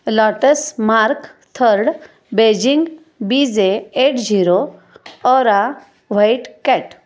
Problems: none marked